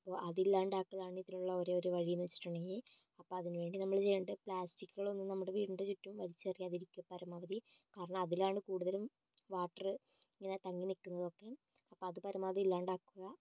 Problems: low volume